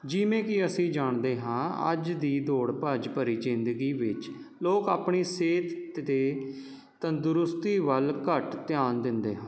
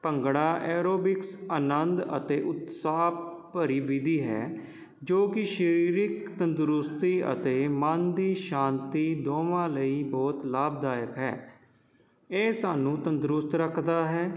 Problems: none marked